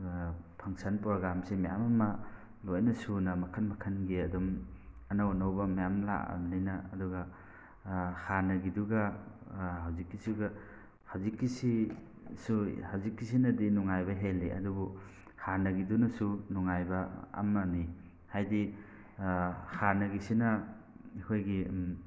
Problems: background sounds at intervals